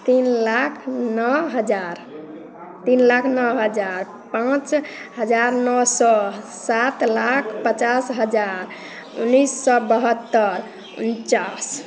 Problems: constant background noise, continuous background conversations